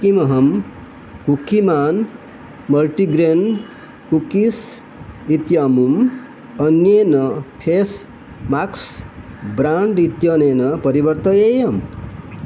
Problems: none marked